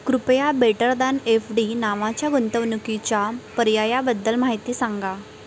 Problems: none marked